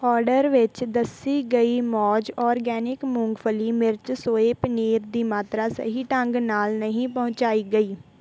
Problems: none marked